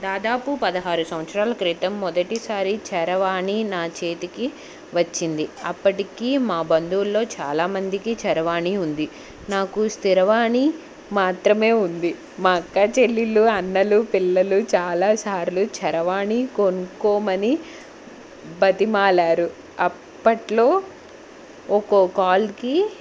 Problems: none marked